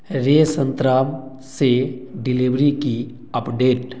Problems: none marked